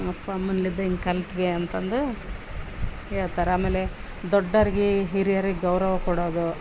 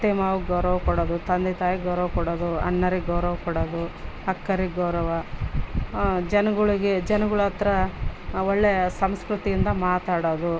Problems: background sounds at intervals